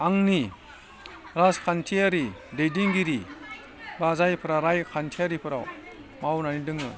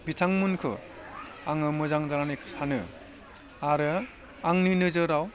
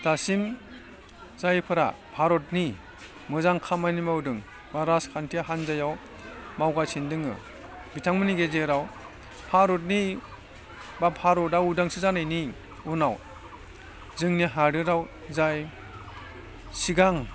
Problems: background conversations at intervals